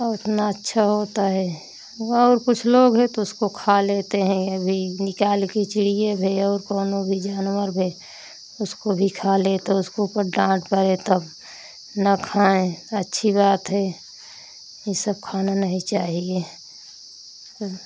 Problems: constant background noise